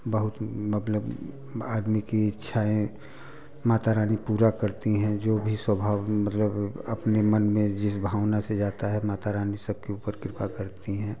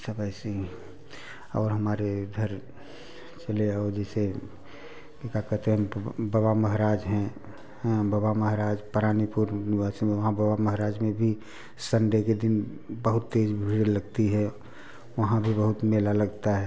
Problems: background sounds at intervals, continuous background conversations